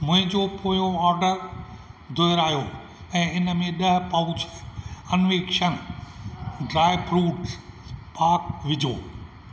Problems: constant background noise, echo